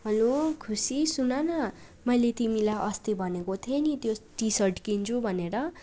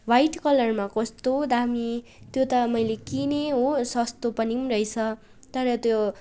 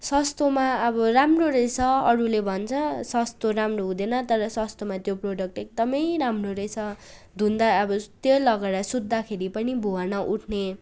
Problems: none marked